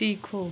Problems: none marked